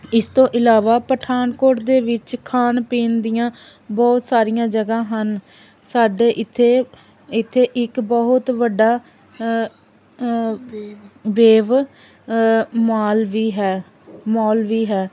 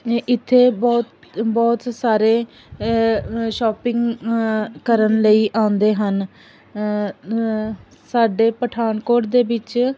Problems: none marked